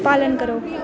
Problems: constant background noise